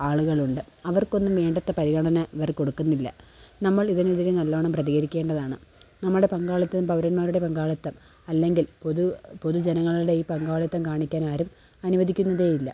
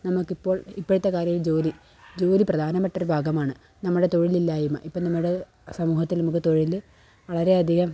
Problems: background sounds at intervals